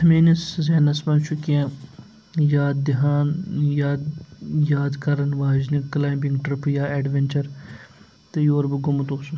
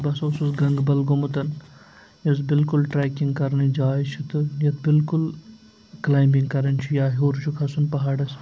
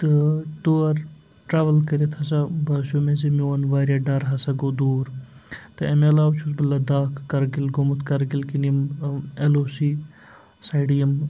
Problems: background sounds at intervals, low volume